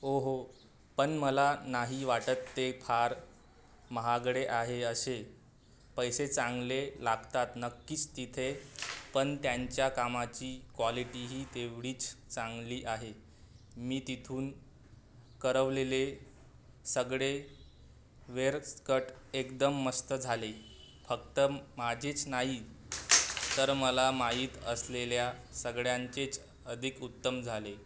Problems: constant background noise